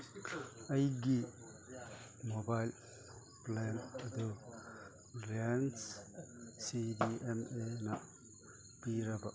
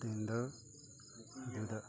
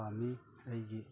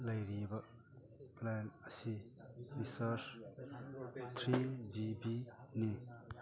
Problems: background sounds at intervals, background conversations at intervals